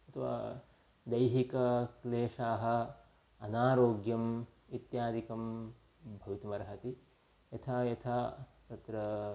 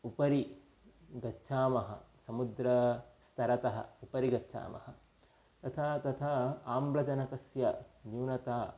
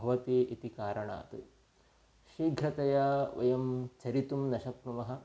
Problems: low volume